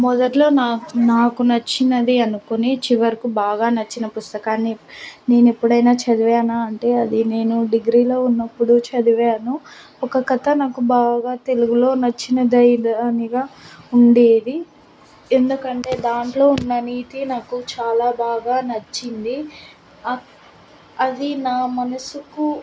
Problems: constant background noise